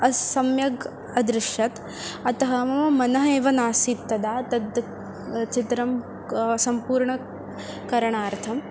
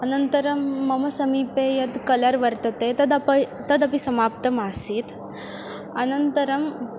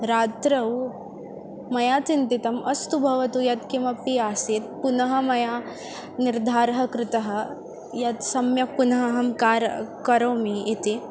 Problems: constant background noise